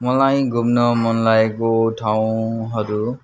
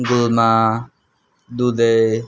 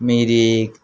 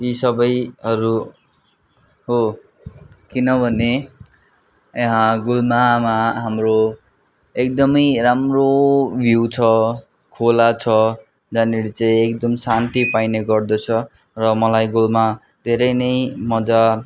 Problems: constant background noise